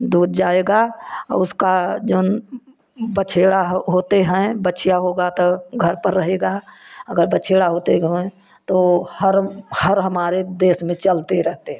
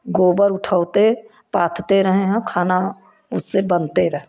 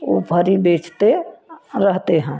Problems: constant background noise, continuous background conversations